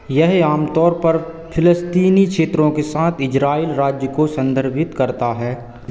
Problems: echo